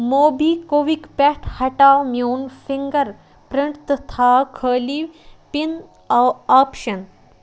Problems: constant background noise